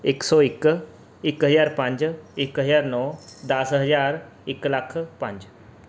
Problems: background sounds at intervals